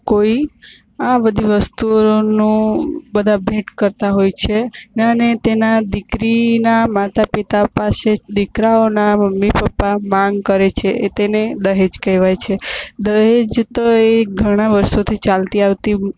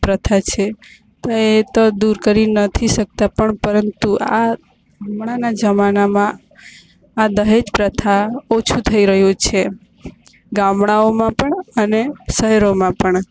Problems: constant background noise